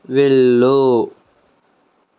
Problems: none marked